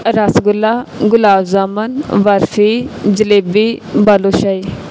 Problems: none marked